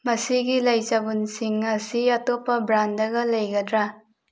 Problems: none marked